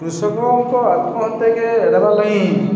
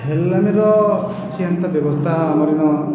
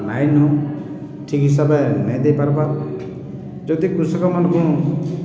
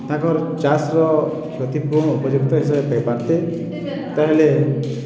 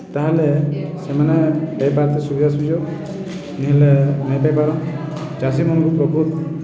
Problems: constant background noise